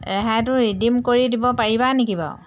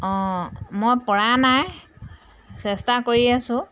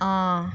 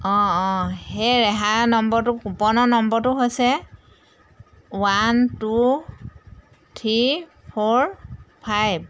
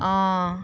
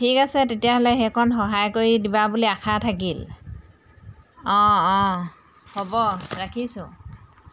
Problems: background sounds at intervals